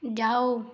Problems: none marked